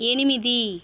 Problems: constant background noise